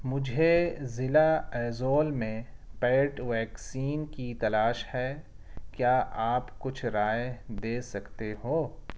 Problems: none marked